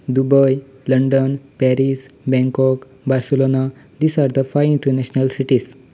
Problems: background sounds at intervals